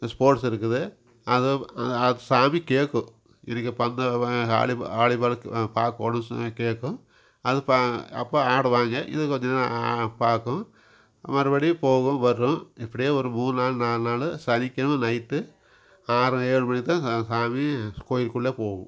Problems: background sounds at intervals